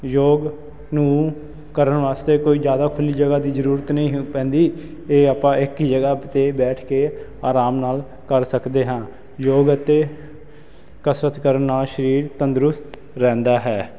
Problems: constant background noise